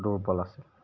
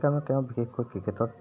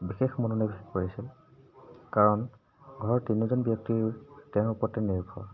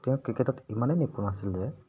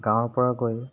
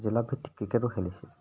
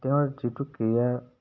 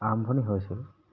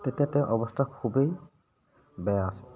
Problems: background sounds at intervals